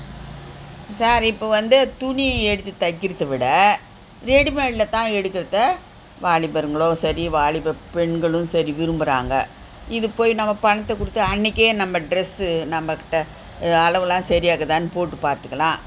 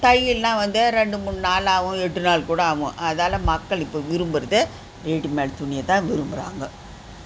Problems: constant background noise